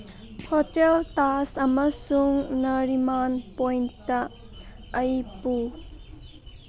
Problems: background sounds at intervals